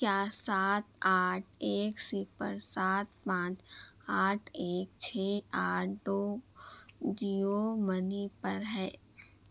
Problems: constant background noise, low volume